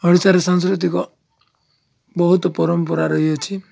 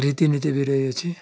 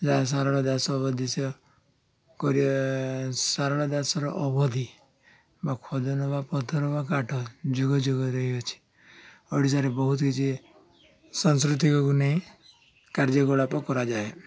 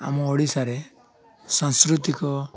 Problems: constant background noise, continuous background conversations